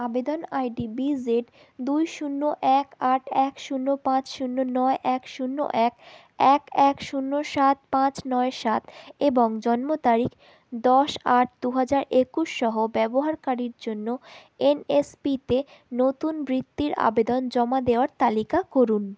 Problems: none marked